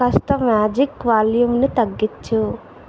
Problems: constant background noise